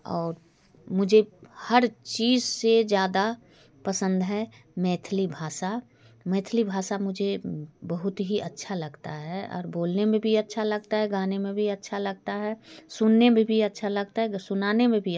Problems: background sounds at intervals, low volume